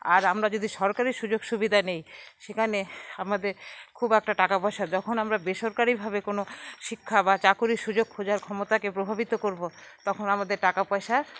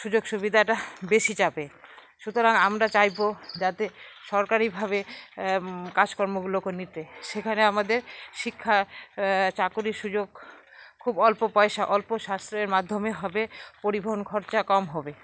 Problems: none marked